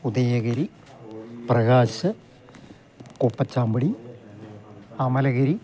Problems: none marked